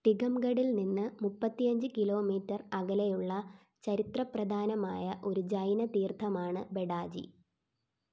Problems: background sounds at intervals